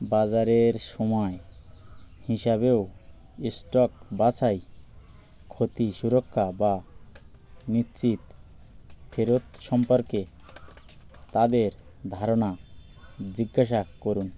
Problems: constant background noise